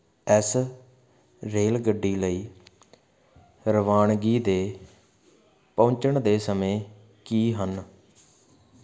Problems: constant background noise